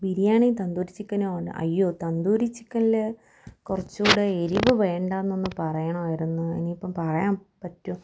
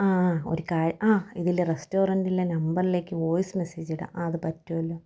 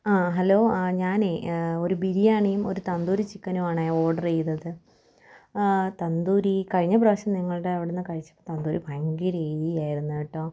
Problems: none marked